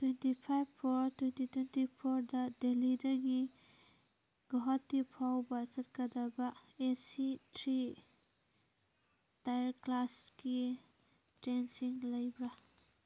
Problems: background sounds at intervals